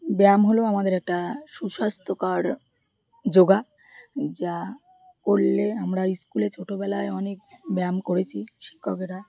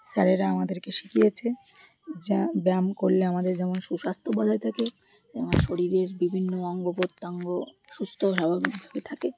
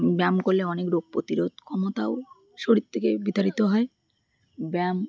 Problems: constant background noise, continuous background conversations